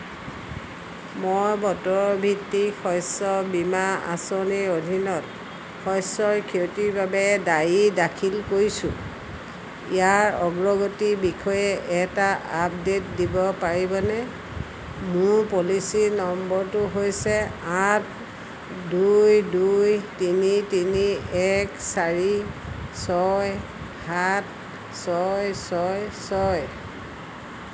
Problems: constant background noise